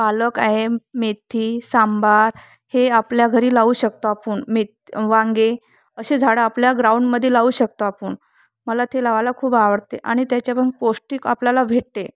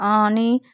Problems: background sounds at intervals